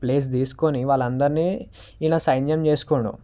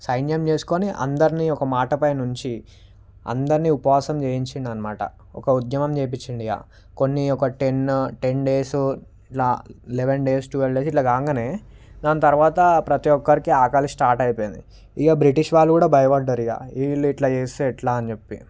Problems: background sounds at intervals